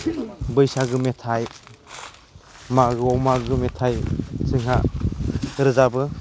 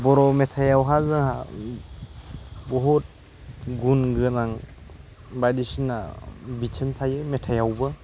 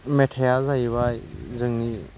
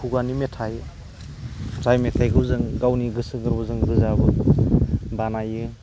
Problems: constant background noise